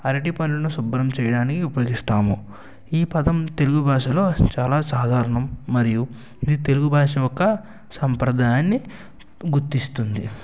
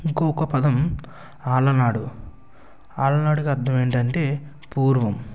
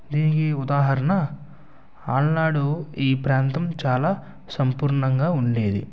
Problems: constant background noise